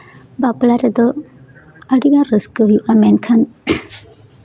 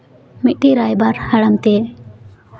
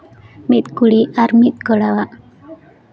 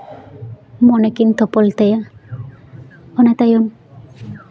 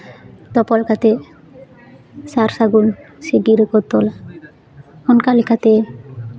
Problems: background sounds at intervals, continuous background conversations